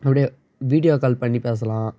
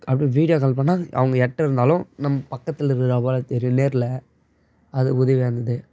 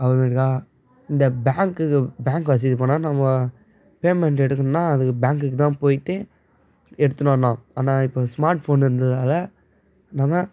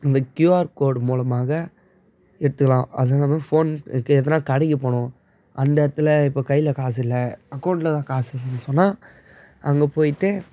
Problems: none marked